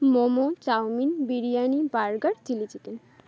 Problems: none marked